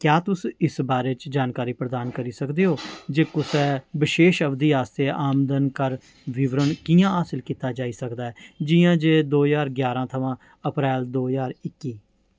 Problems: background sounds at intervals